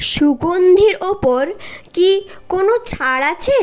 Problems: constant background noise